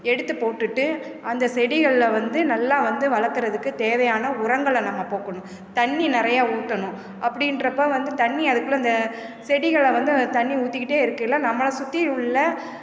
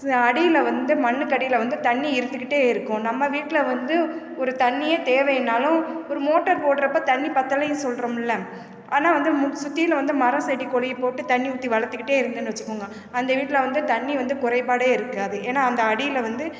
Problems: constant background noise